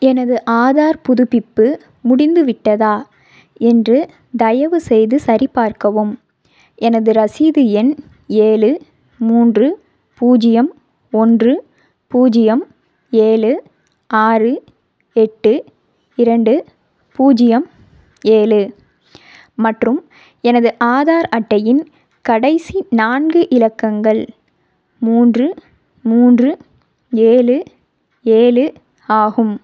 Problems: none marked